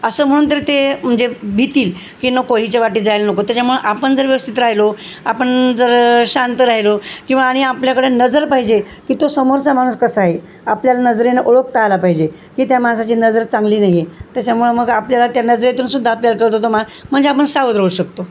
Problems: constant background noise